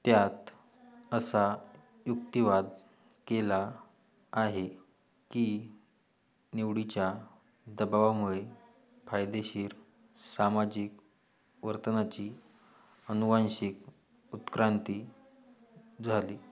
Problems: background sounds at intervals